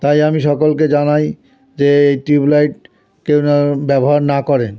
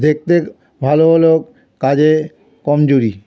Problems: continuous background conversations